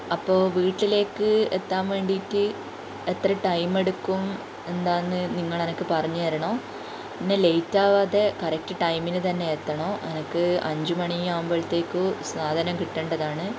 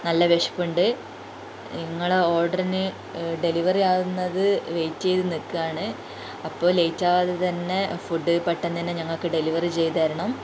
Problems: constant background noise